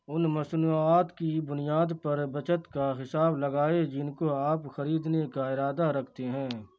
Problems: none marked